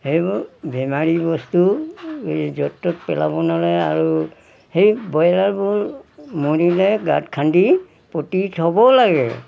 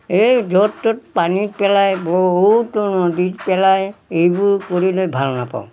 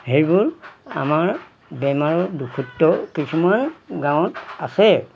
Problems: background sounds at intervals